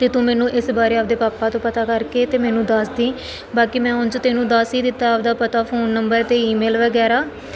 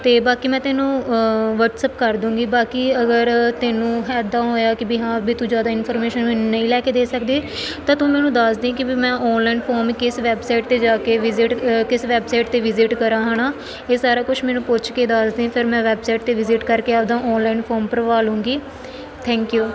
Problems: none marked